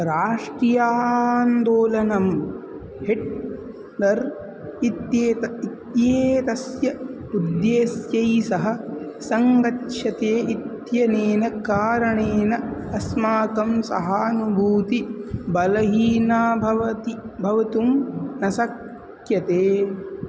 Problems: constant background noise